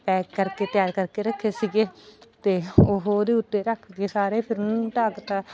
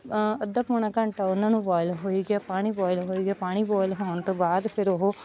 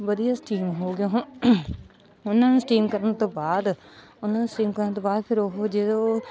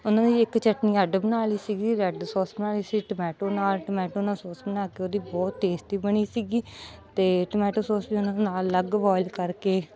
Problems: background sounds at intervals, background conversations at intervals